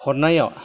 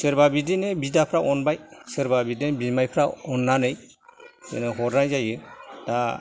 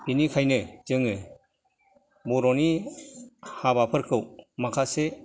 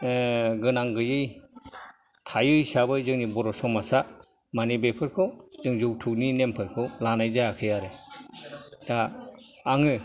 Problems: background sounds at intervals, background conversations at intervals